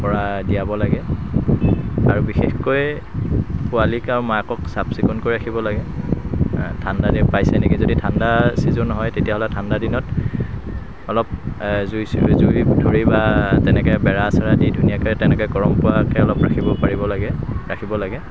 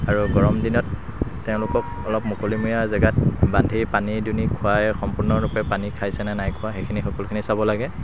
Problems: constant background noise